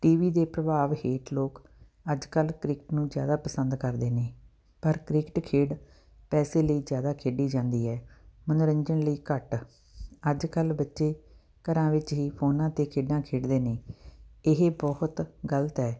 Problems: background sounds at intervals